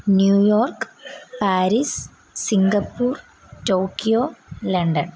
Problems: background sounds at intervals